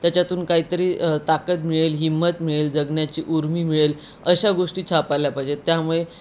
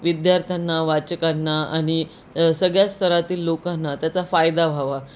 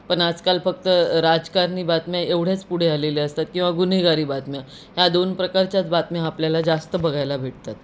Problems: constant background noise